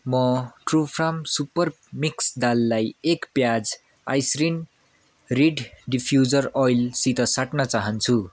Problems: constant background noise